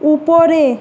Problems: constant background noise